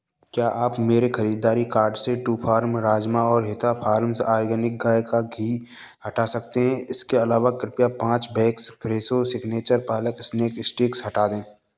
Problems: none marked